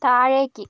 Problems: none marked